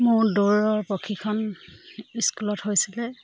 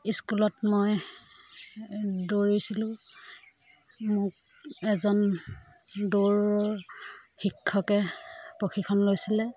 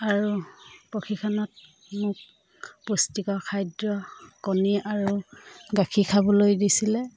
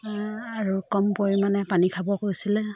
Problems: none marked